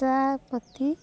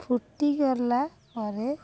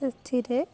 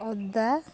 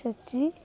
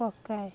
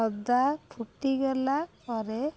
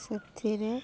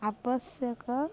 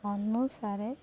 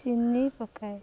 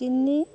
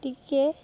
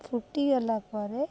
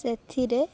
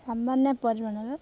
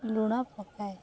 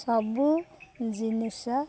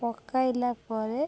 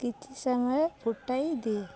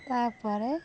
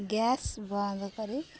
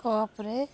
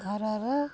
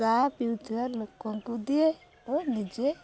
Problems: none marked